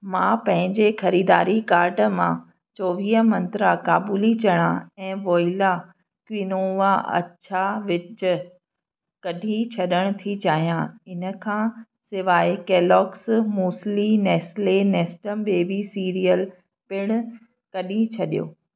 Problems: none marked